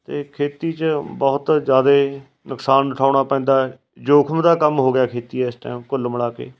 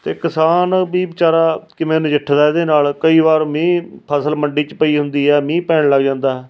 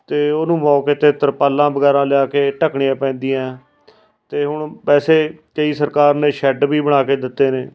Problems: none marked